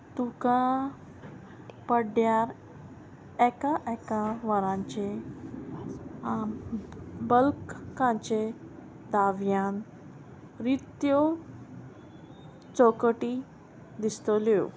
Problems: constant background noise